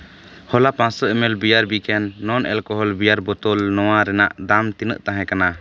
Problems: background sounds at intervals